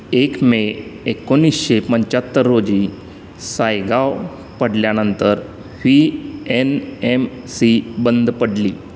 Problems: constant background noise